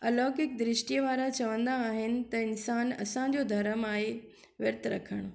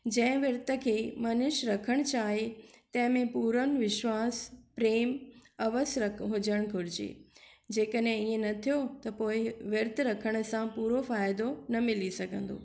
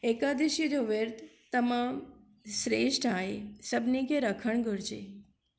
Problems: none marked